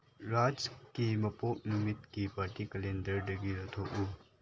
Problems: background sounds at intervals